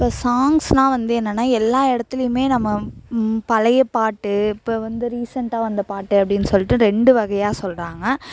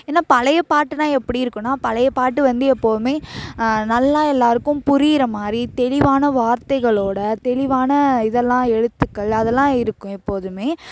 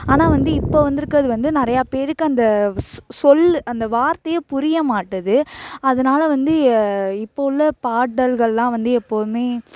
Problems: constant background noise